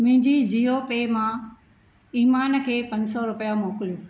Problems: none marked